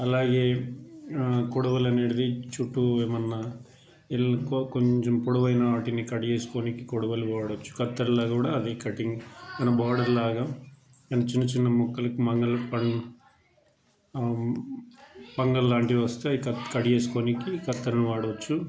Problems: background sounds at intervals, background conversations at intervals